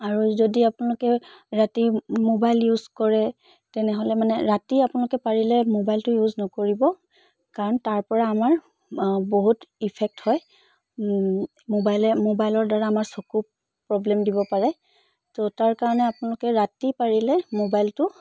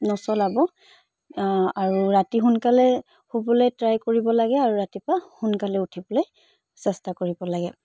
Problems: background sounds at intervals